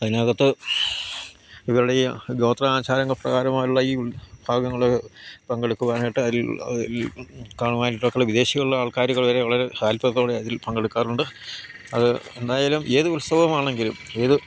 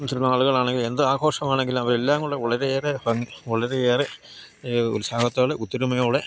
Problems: none marked